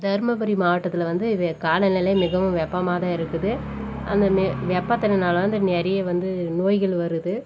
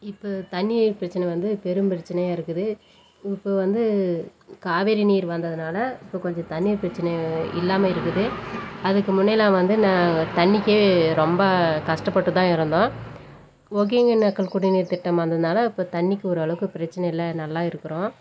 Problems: background sounds at intervals